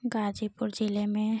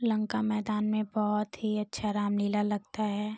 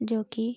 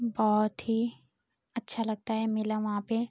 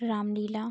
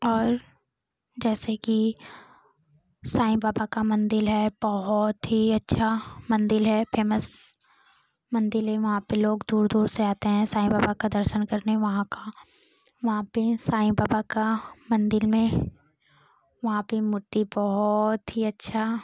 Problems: constant background noise